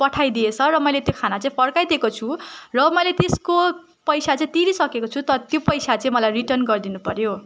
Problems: none marked